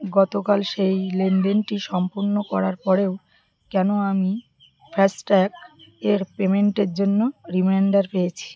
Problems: continuous background conversations